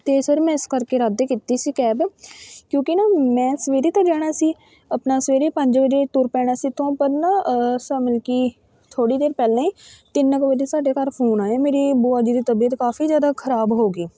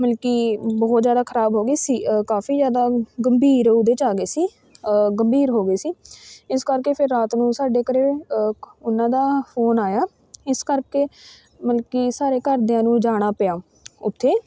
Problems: constant background noise, continuous background conversations